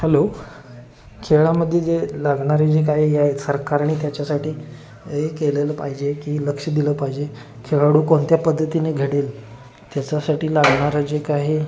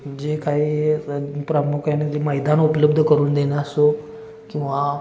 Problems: constant background noise, continuous background conversations